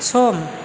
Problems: constant background noise